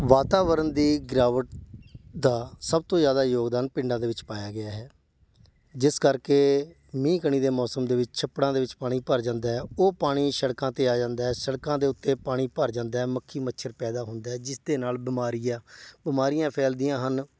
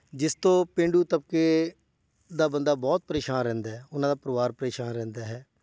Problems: background sounds at intervals